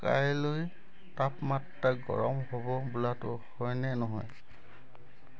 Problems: constant background noise